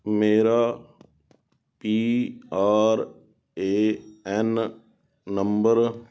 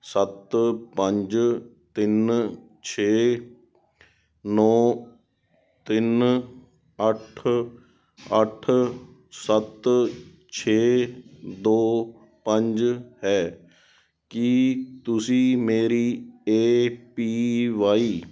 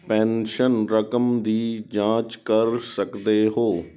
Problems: background sounds at intervals